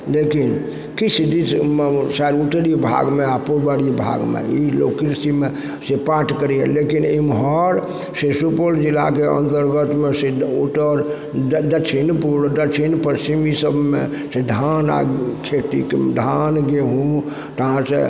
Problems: background sounds at intervals, background conversations at intervals